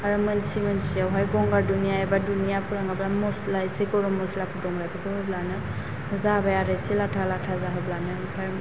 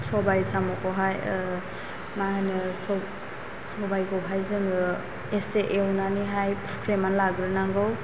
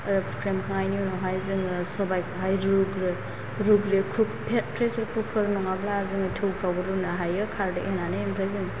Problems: constant background noise